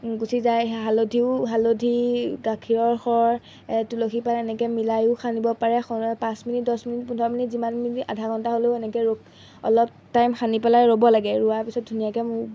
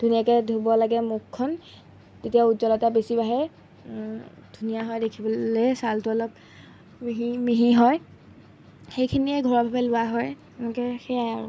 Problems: background sounds at intervals